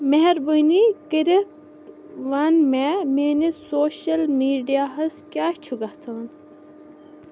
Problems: background sounds at intervals